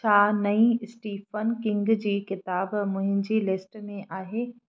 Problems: none marked